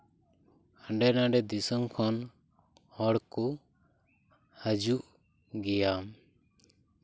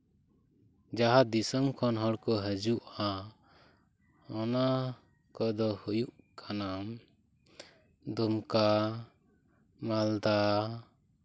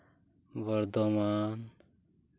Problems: none marked